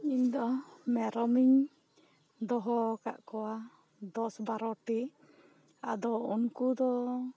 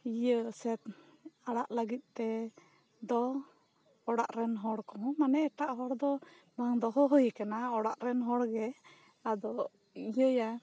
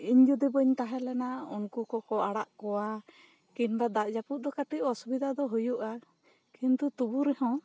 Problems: none marked